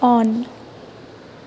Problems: constant background noise